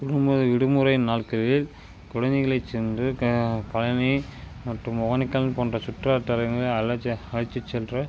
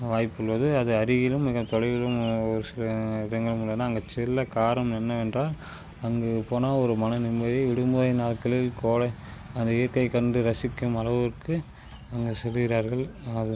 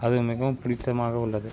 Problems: constant background noise